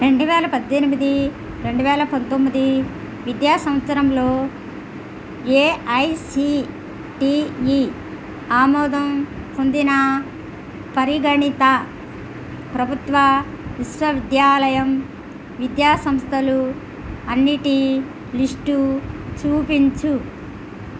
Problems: constant background noise